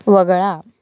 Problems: background sounds at intervals